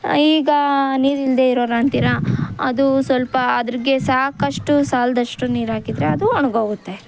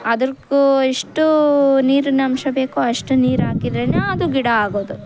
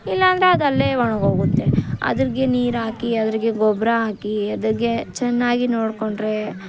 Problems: background sounds at intervals